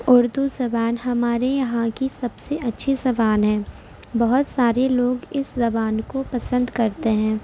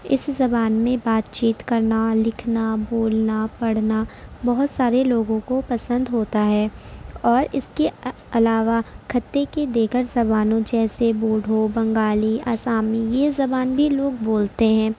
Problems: constant background noise